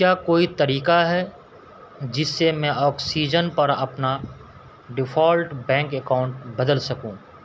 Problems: constant background noise